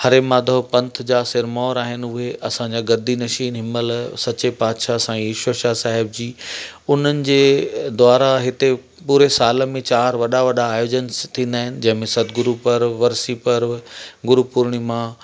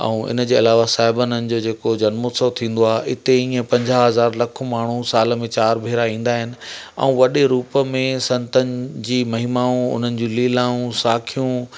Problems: constant background noise, echo